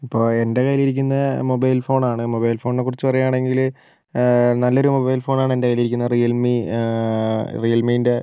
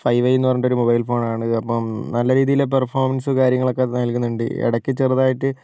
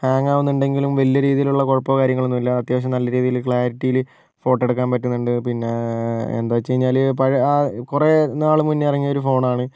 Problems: none marked